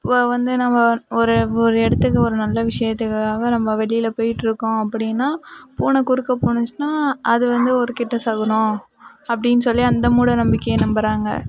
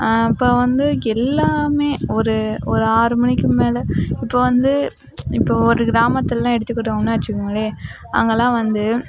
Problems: background conversations at intervals